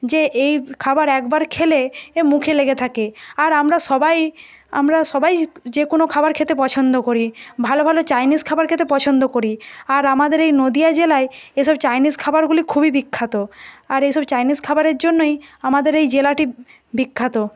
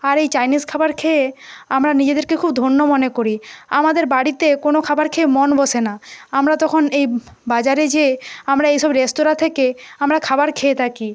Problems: none marked